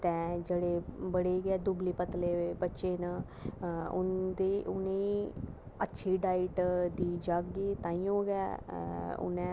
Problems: constant background noise, low volume